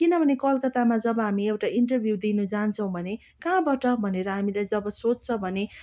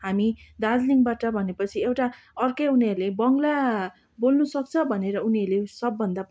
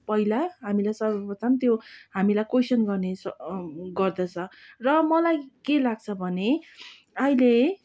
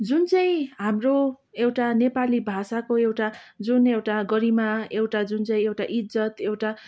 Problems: background sounds at intervals